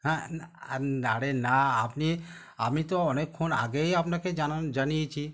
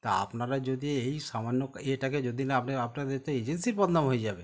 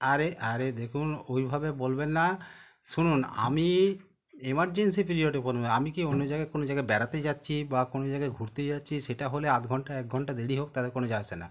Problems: none marked